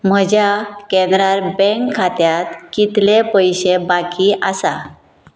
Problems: background sounds at intervals